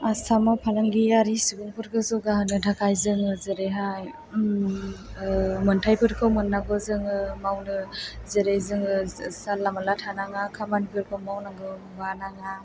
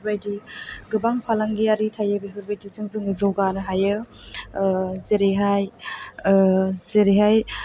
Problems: background sounds at intervals